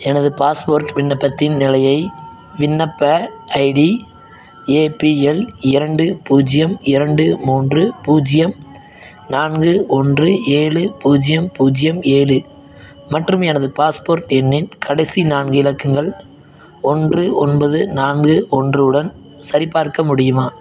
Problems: background sounds at intervals